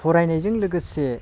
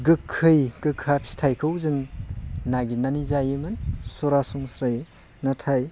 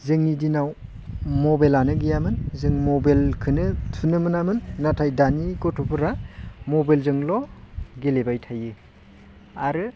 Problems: constant background noise